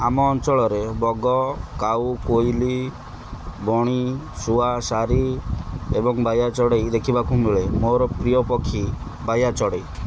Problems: none marked